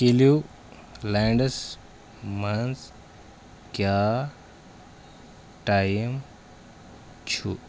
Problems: none marked